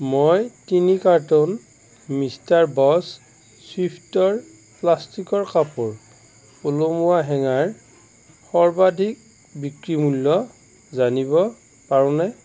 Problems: constant background noise